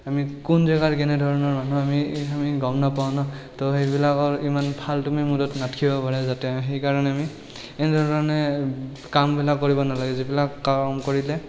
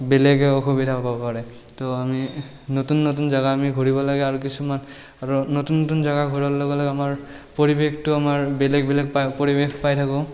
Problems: none marked